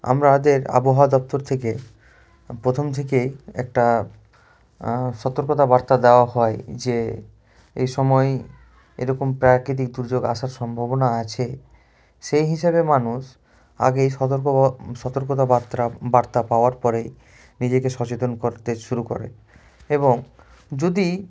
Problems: constant background noise